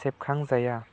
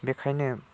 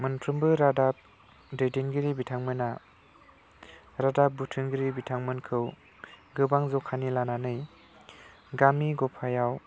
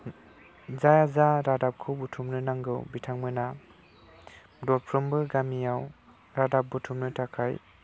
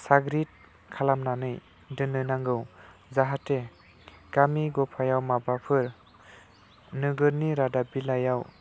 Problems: low volume